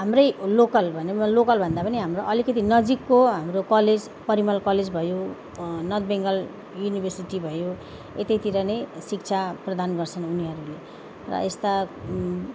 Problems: constant background noise